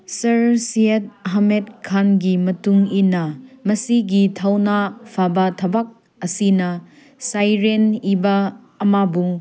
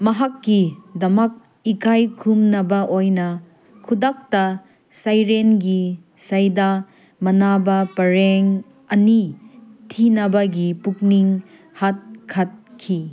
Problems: background sounds at intervals